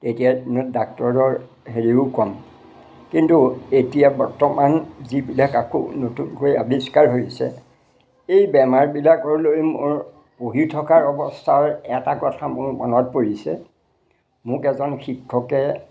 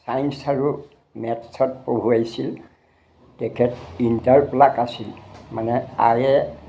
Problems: none marked